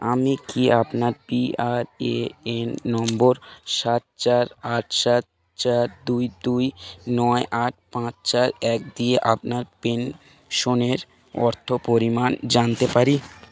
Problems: background conversations at intervals